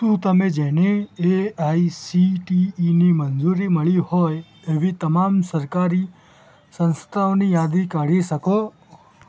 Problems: background sounds at intervals